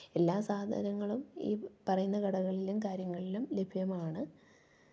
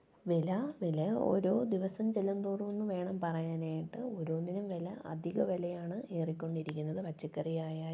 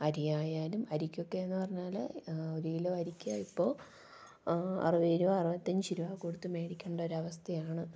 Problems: low volume